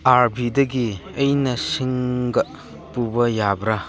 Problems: background sounds at intervals